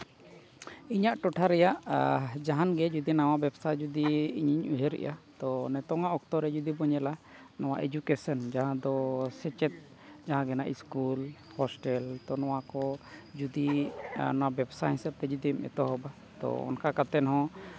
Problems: none marked